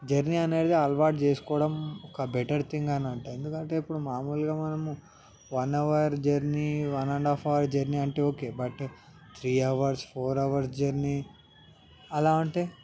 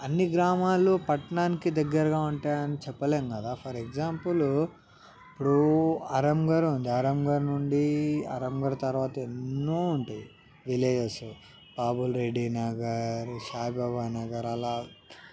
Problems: background sounds at intervals, background conversations at intervals